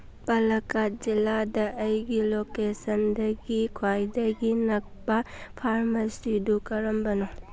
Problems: none marked